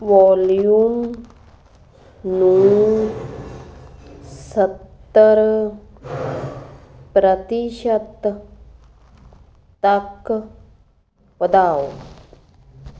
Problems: constant background noise